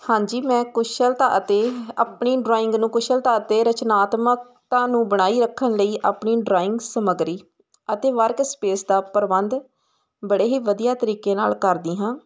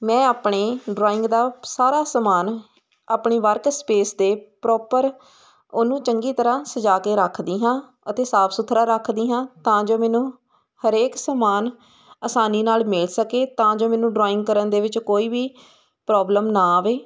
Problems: constant background noise